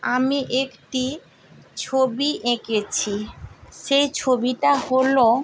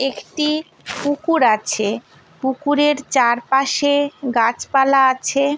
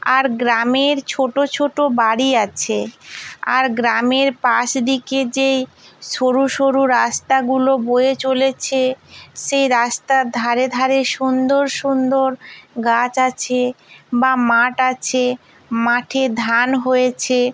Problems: none marked